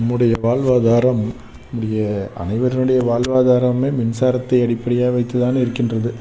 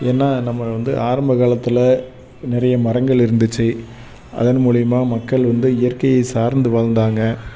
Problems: background sounds at intervals